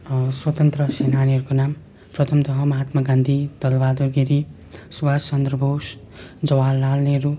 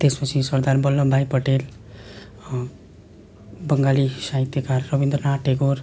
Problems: constant background noise